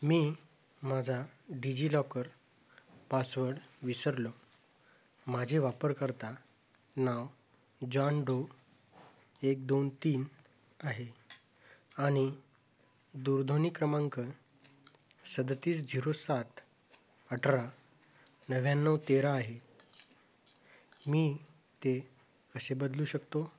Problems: constant background noise